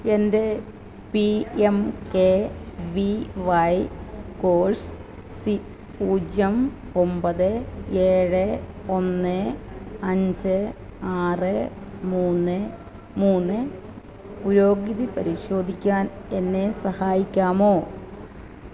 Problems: constant background noise